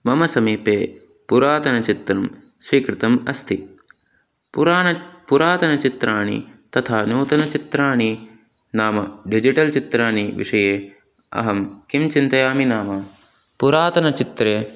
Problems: constant background noise